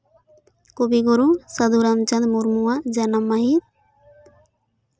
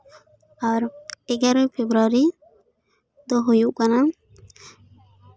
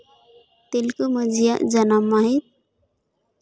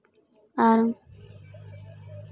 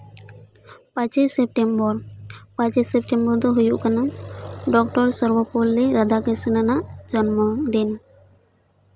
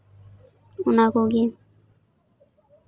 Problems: none marked